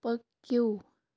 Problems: none marked